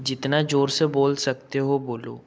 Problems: background sounds at intervals